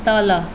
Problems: background sounds at intervals